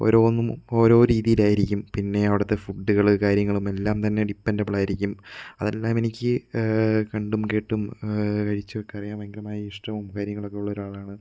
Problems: background sounds at intervals